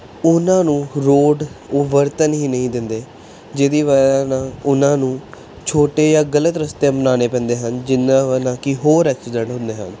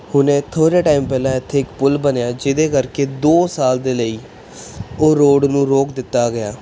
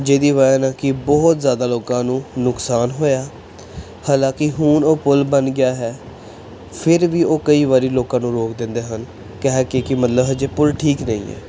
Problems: none marked